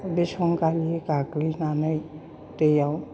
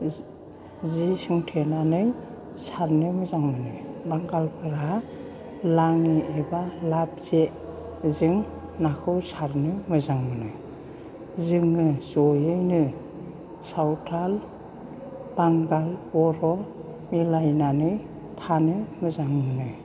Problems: constant background noise